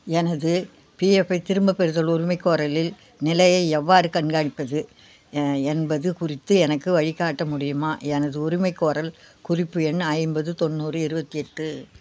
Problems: none marked